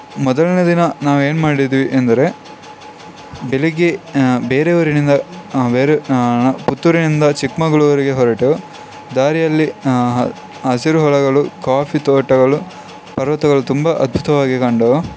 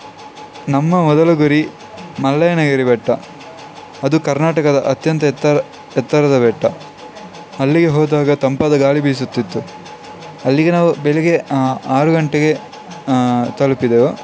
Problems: constant background noise